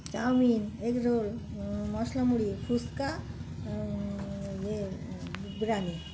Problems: constant background noise